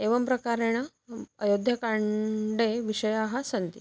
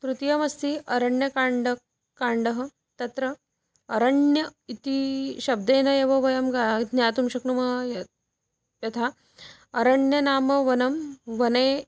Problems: background sounds at intervals